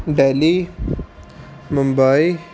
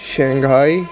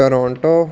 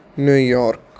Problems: constant background noise